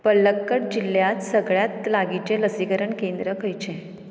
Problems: background sounds at intervals